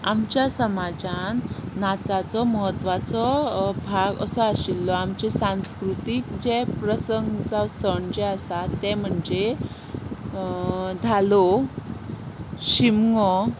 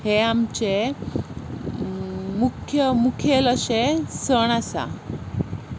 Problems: none marked